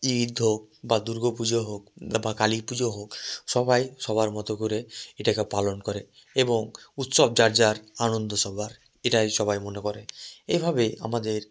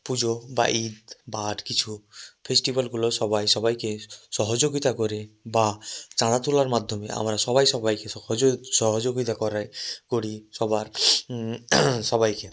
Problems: none marked